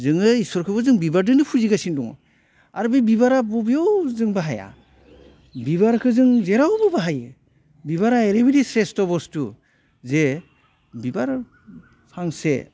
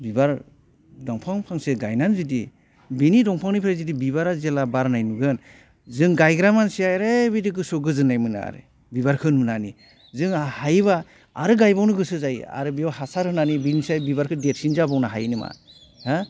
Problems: none marked